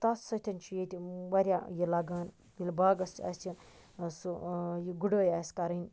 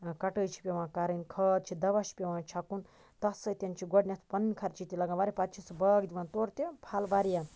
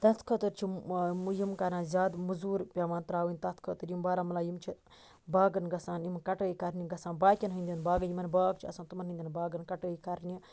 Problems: constant background noise